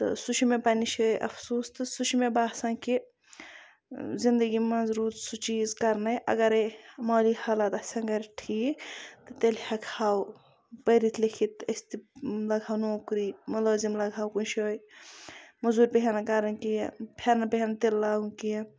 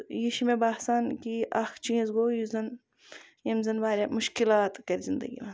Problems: none marked